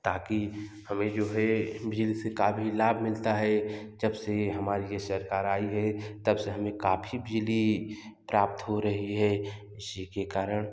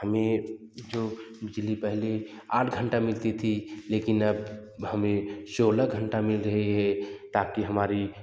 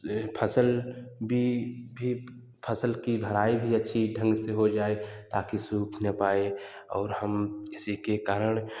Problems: background sounds at intervals, background conversations at intervals, echo